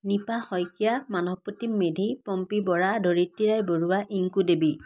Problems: continuous background conversations